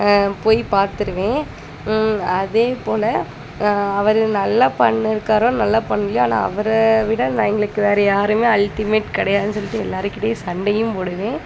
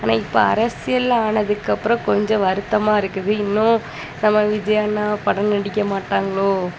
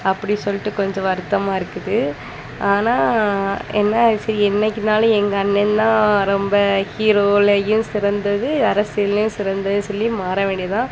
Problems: constant background noise